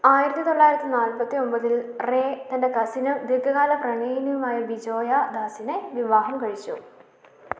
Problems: constant background noise, low volume